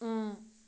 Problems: none marked